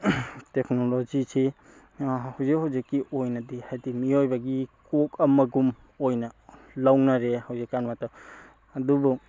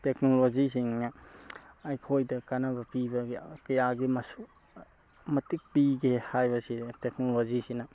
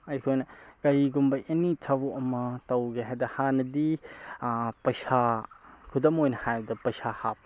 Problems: background sounds at intervals